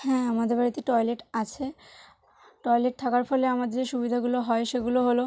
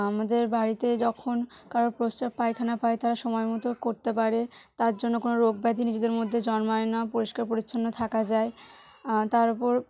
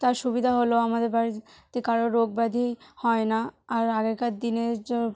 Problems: none marked